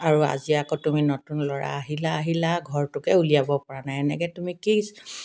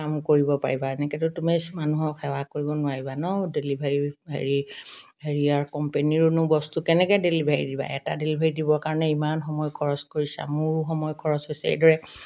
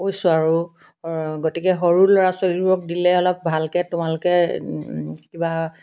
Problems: background conversations at intervals